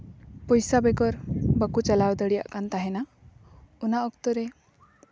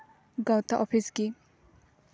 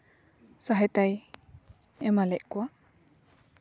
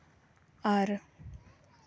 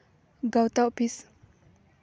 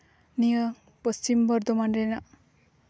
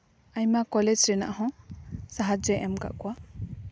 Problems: background sounds at intervals